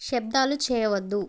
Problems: none marked